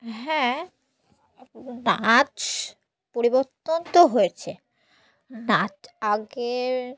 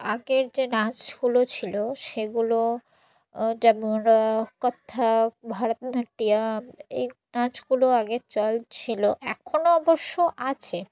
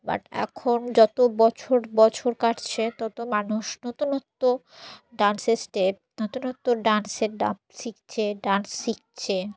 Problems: none marked